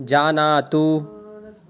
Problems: none marked